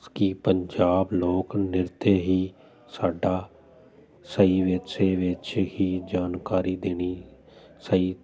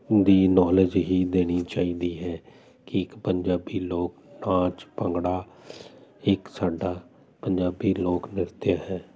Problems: none marked